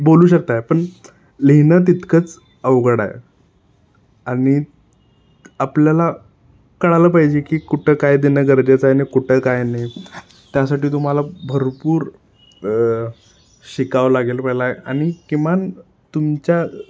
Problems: constant background noise